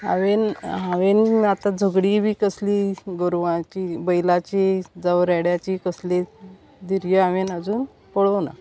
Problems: constant background noise, background conversations at intervals